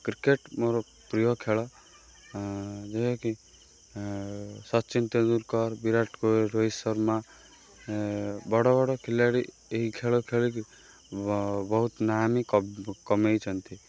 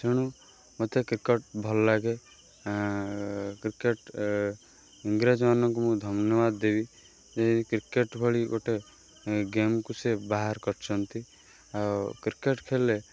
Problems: none marked